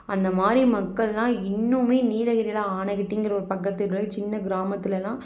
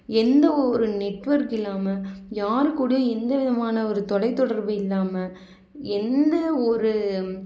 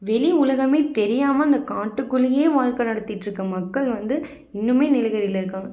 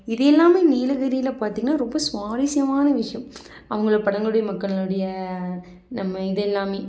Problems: none marked